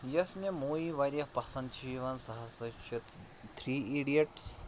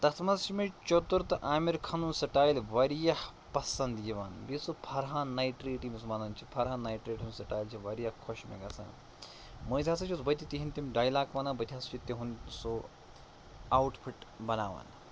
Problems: constant background noise